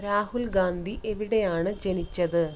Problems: none marked